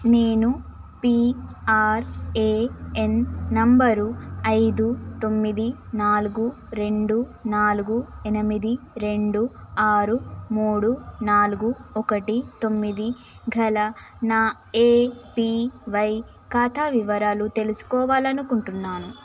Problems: none marked